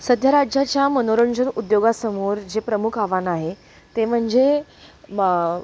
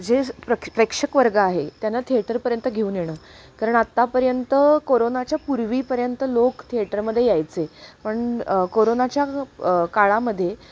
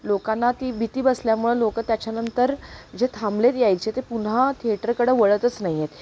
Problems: none marked